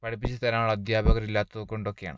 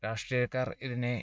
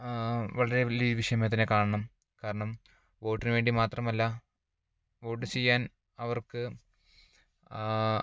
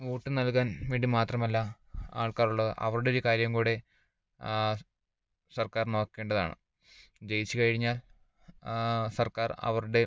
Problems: low volume